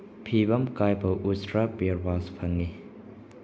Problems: low volume